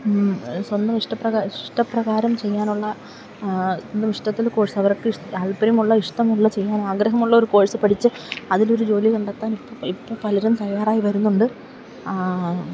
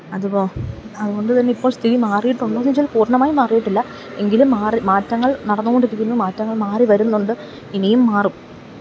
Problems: none marked